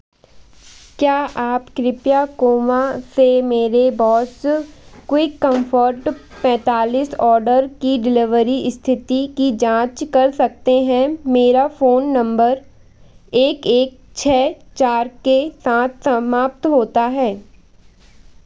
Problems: constant background noise